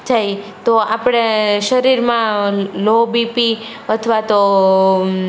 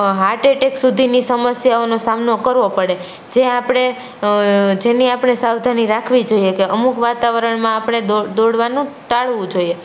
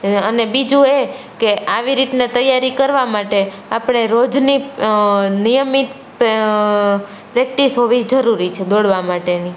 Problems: none marked